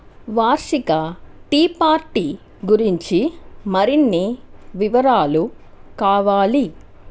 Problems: constant background noise